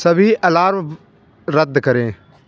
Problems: constant background noise